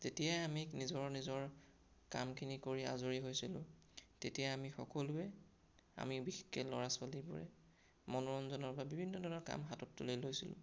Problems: none marked